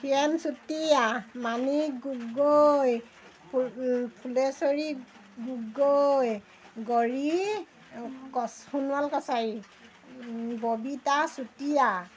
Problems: none marked